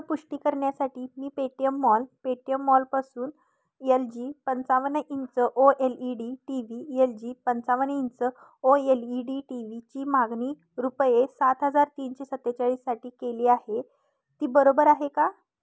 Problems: none marked